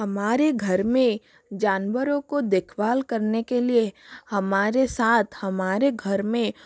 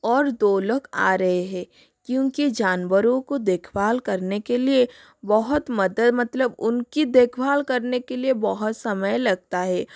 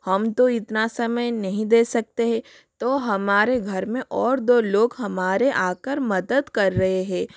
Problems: constant background noise